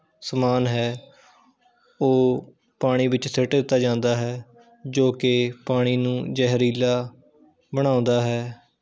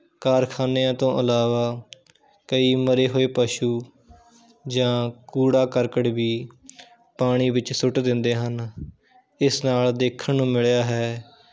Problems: background sounds at intervals